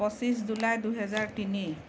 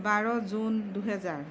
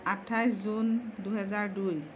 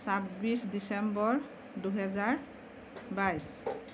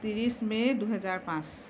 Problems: constant background noise